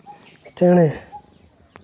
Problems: none marked